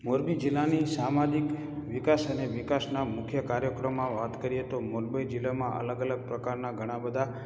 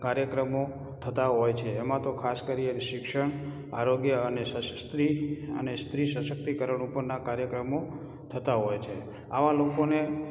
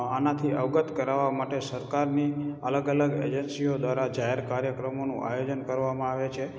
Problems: background sounds at intervals